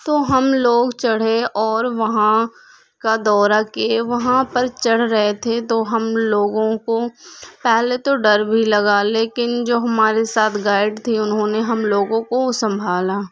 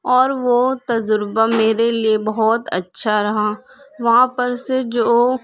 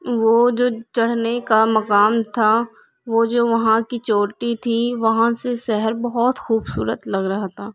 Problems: background sounds at intervals